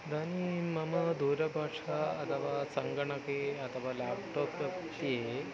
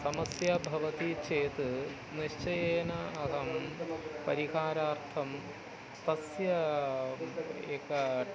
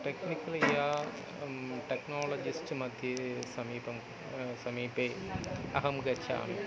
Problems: none marked